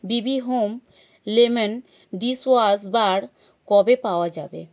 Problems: none marked